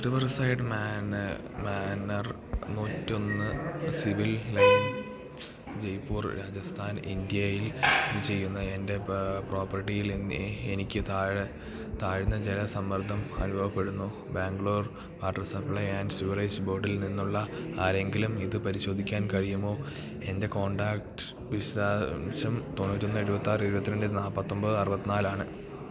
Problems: low volume